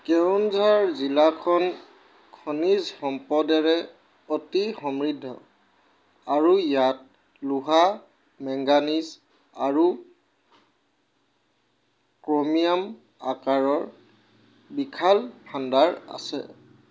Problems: background sounds at intervals